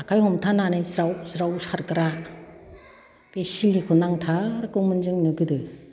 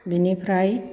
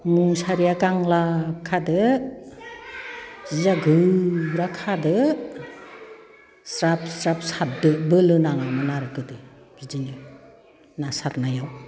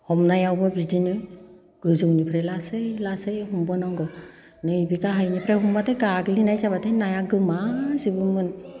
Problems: background conversations at intervals